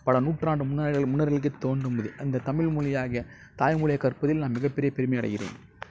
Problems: low volume